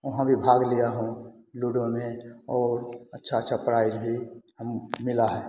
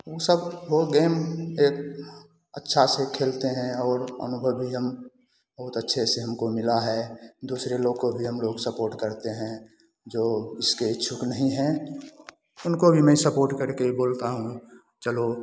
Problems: constant background noise